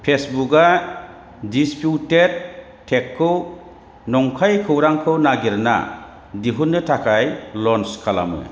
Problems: none marked